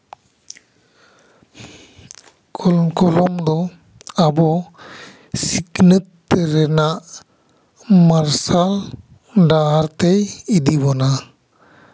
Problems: echo